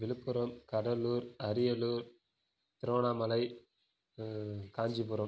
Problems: low volume